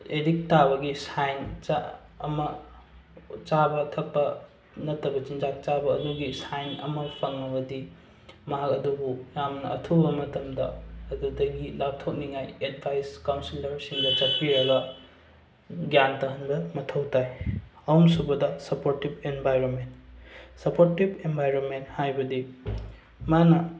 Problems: background sounds at intervals